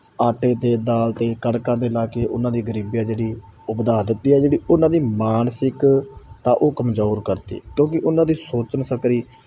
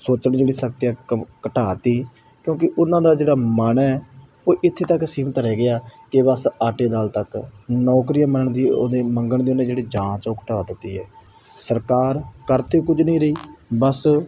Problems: none marked